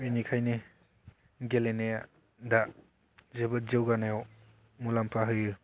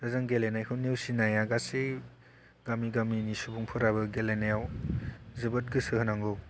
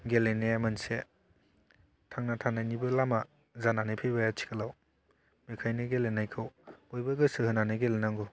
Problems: low volume